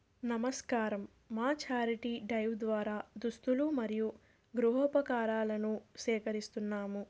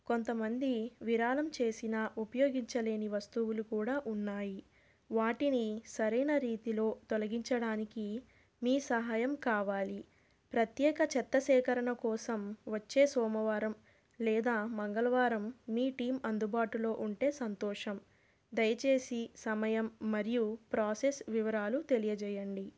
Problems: none marked